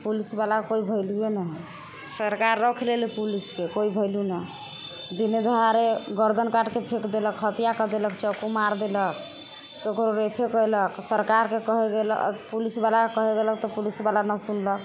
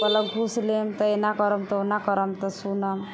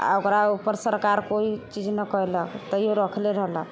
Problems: constant background noise